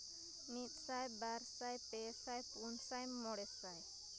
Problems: constant background noise, low volume